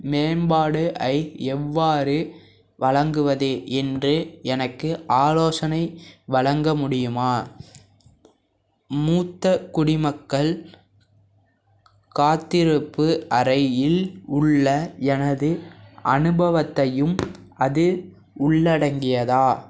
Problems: background sounds at intervals